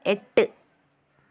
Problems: none marked